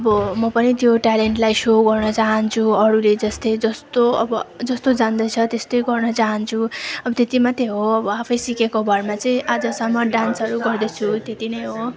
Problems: background sounds at intervals, continuous background conversations